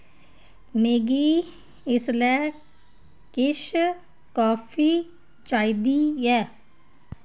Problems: none marked